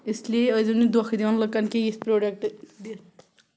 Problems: background sounds at intervals